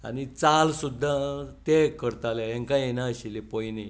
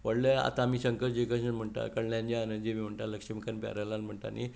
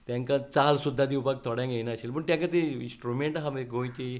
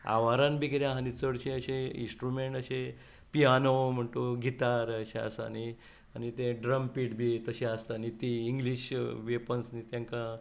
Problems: none marked